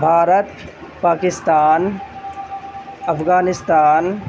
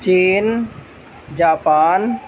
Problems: constant background noise